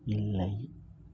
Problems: low volume